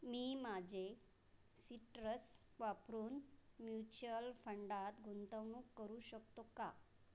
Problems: none marked